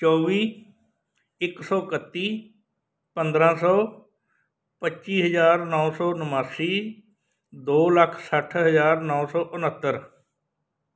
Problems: background sounds at intervals